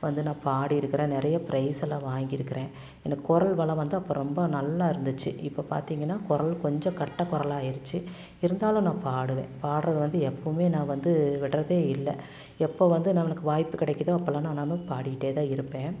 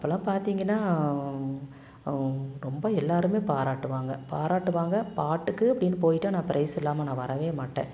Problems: none marked